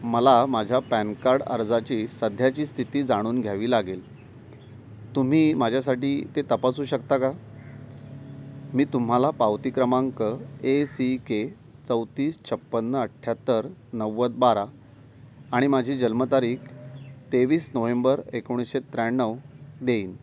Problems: background sounds at intervals